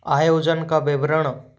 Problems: none marked